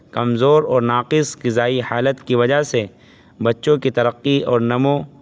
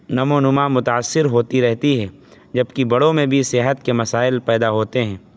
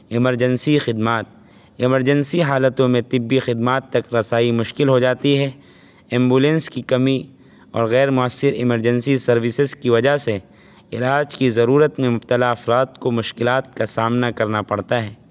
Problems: constant background noise